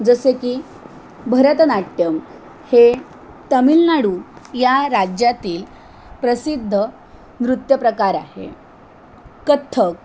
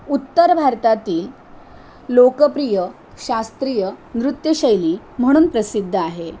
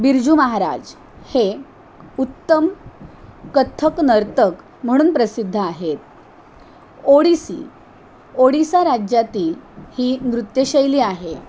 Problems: constant background noise